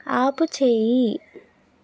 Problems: none marked